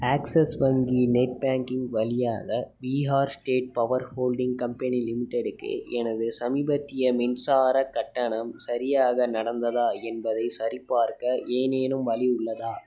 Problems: background sounds at intervals, background conversations at intervals